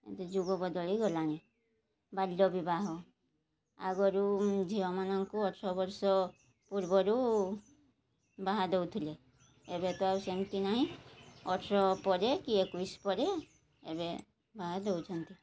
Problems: none marked